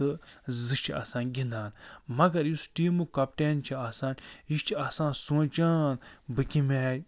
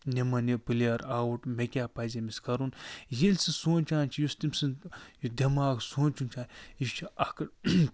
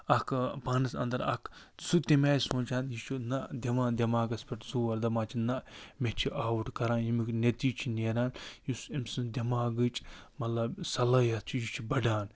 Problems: none marked